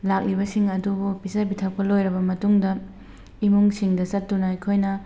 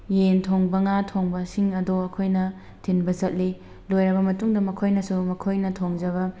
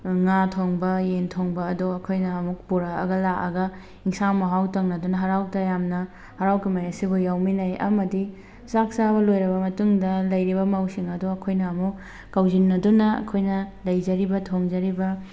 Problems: background sounds at intervals